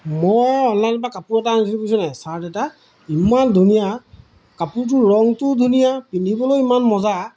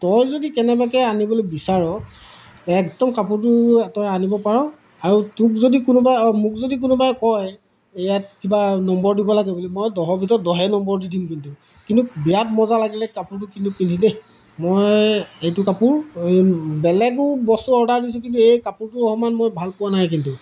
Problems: background sounds at intervals